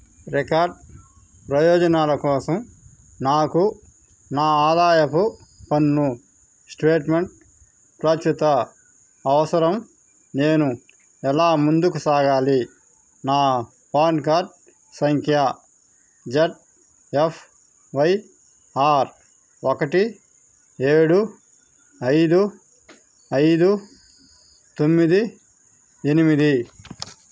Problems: constant background noise